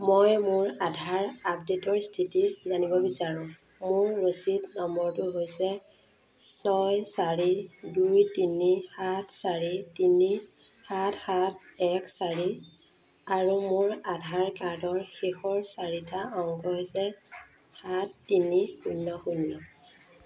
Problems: constant background noise